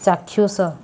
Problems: background conversations at intervals